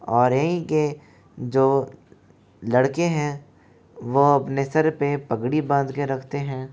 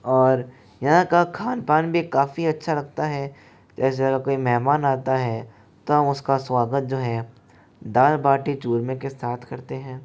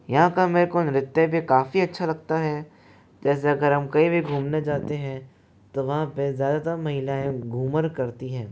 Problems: none marked